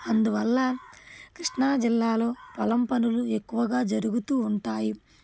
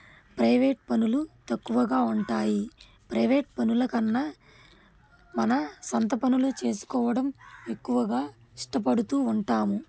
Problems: none marked